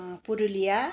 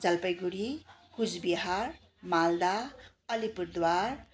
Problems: constant background noise